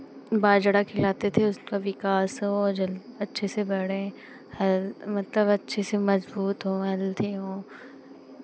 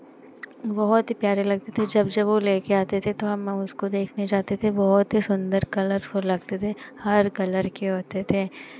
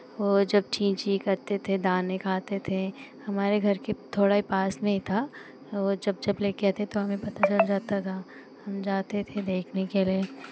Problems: constant background noise